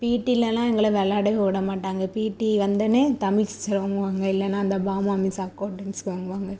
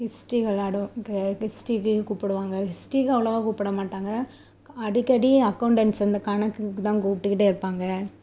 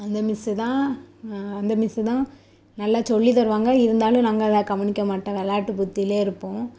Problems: constant background noise